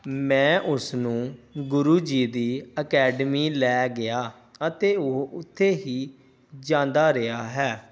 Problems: background sounds at intervals